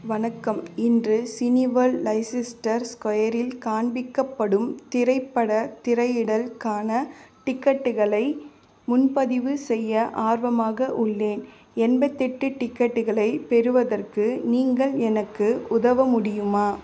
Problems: constant background noise, continuous background conversations